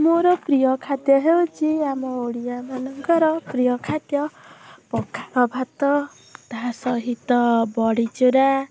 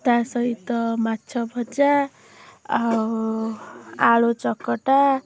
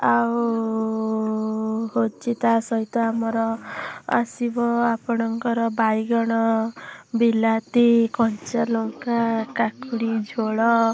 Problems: background sounds at intervals